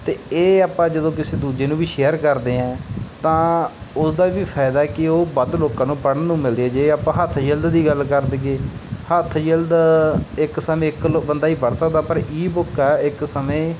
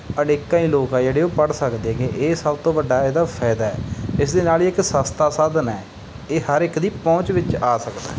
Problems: background sounds at intervals